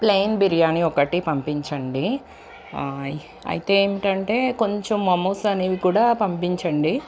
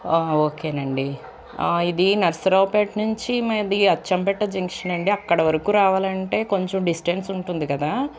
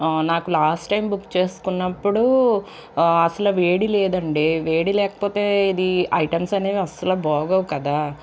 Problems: constant background noise